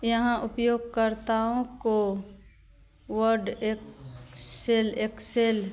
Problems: constant background noise